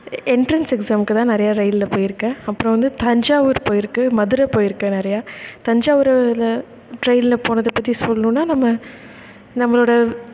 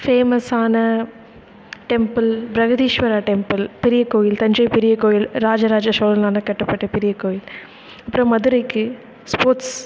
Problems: background sounds at intervals